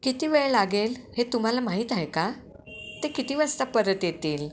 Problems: background sounds at intervals